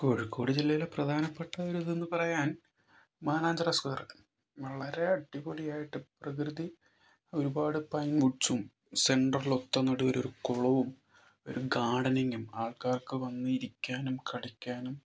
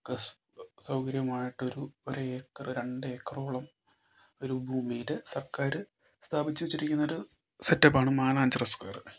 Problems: low volume